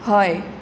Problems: constant background noise